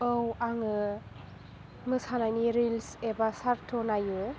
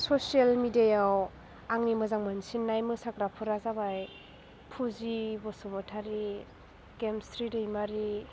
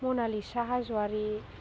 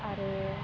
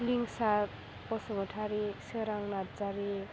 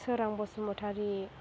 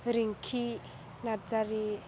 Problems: background sounds at intervals